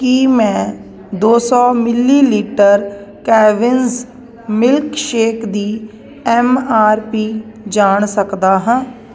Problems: constant background noise